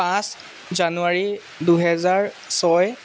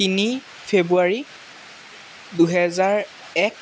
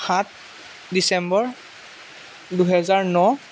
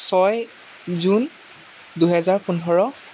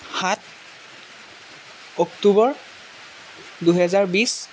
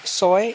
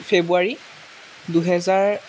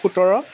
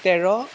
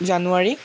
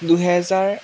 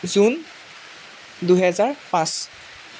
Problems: none marked